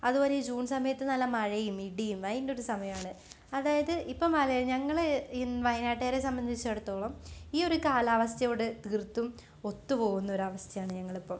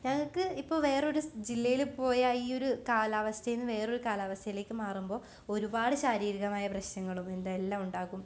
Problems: none marked